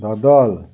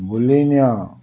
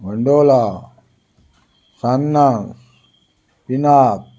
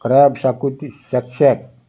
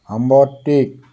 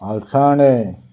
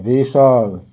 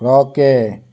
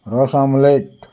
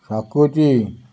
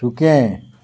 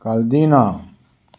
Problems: none marked